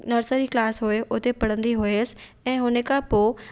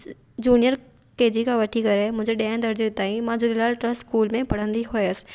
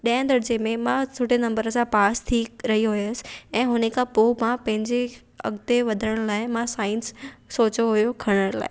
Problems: none marked